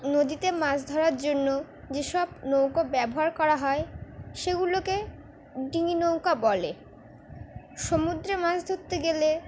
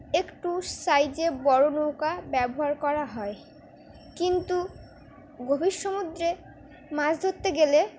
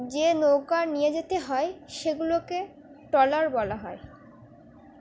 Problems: none marked